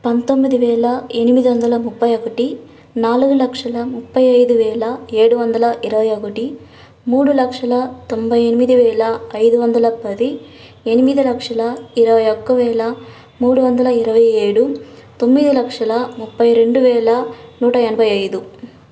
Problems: none marked